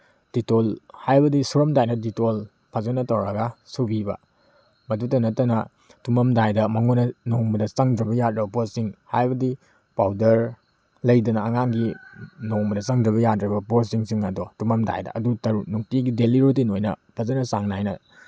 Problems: background sounds at intervals